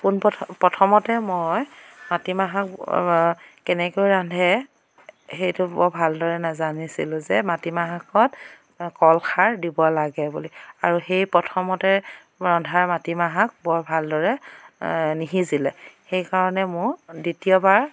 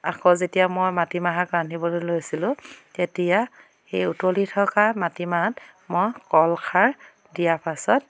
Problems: none marked